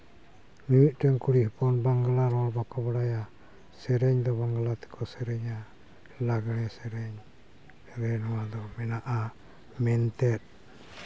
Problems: none marked